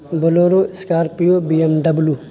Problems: constant background noise